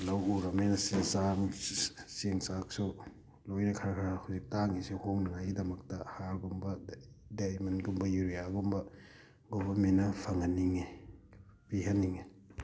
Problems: background sounds at intervals